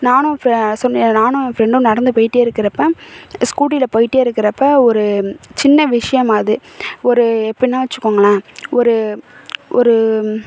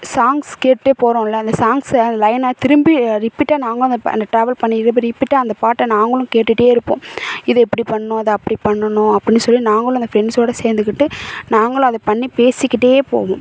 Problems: none marked